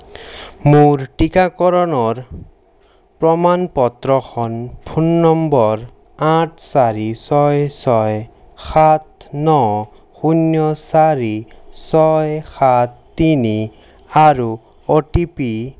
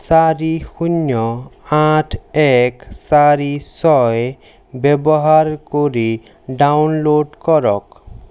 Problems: none marked